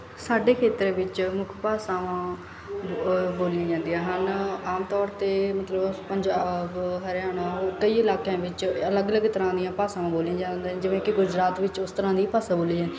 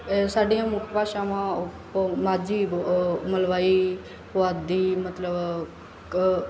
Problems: none marked